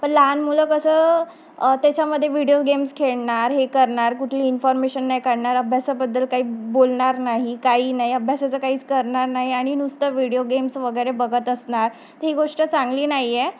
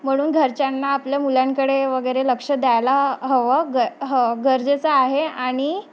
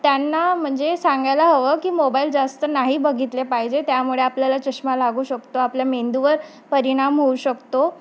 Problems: constant background noise, background conversations at intervals